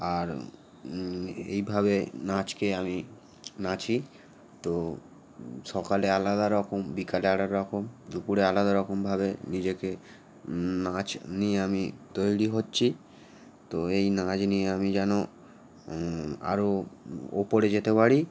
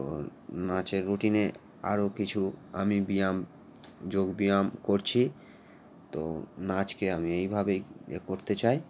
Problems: constant background noise